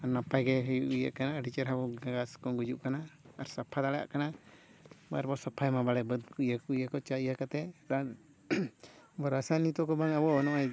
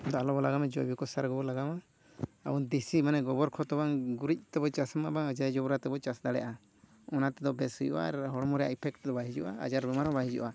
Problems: none marked